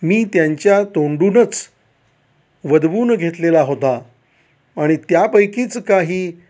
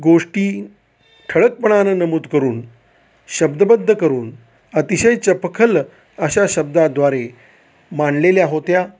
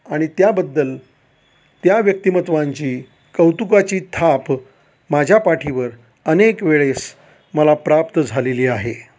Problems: constant background noise